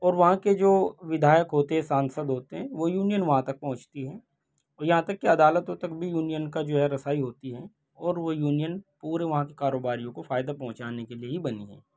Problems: none marked